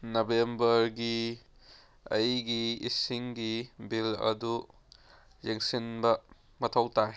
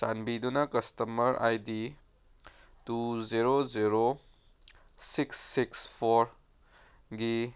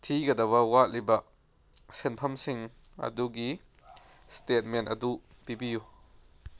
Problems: none marked